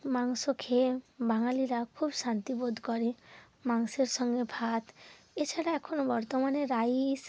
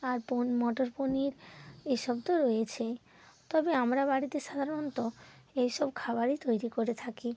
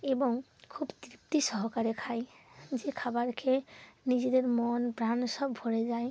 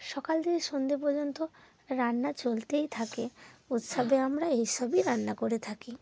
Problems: background sounds at intervals